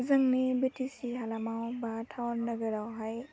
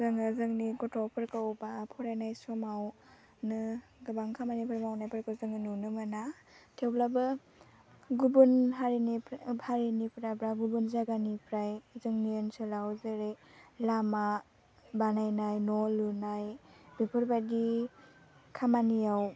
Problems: low volume